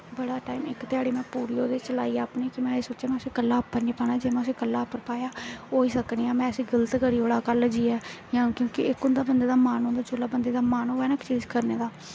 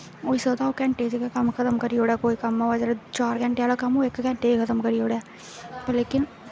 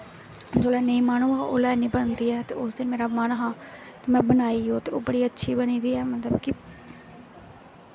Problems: constant background noise